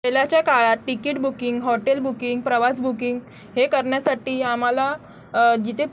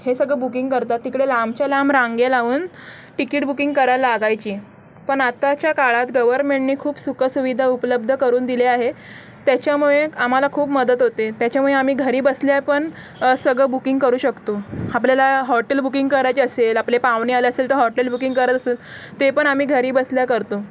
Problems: constant background noise, background conversations at intervals